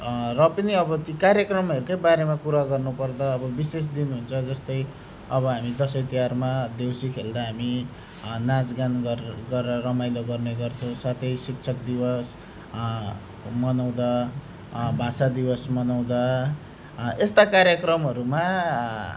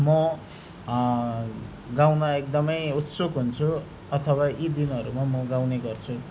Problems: none marked